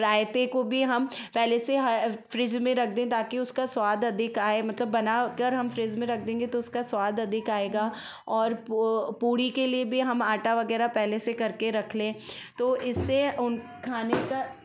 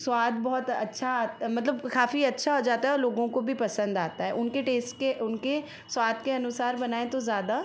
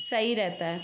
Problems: background sounds at intervals